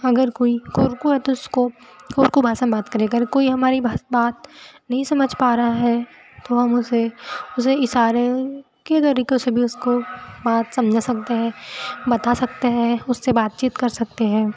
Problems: none marked